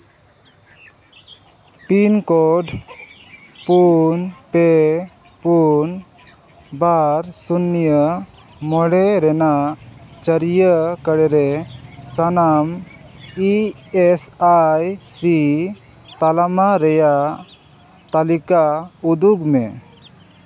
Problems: constant background noise, background conversations at intervals